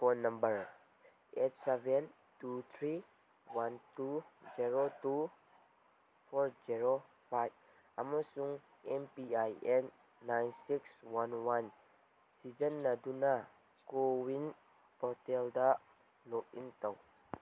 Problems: background sounds at intervals